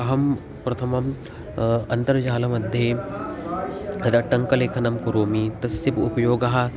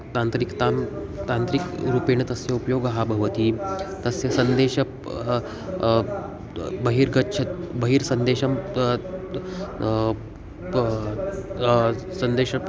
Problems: background sounds at intervals